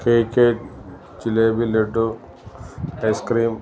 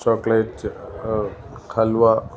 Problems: background sounds at intervals